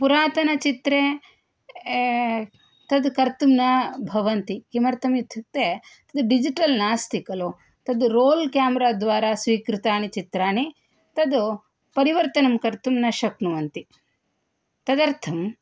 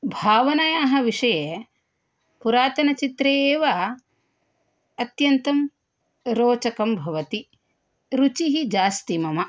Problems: none marked